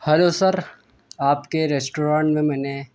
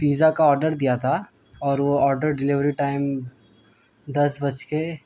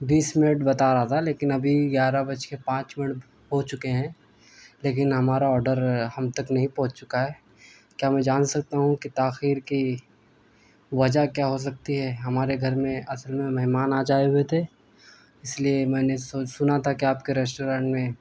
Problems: constant background noise